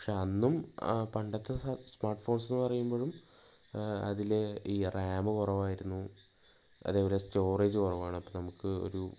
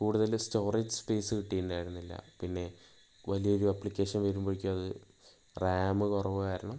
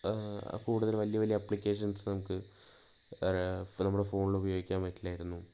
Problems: low volume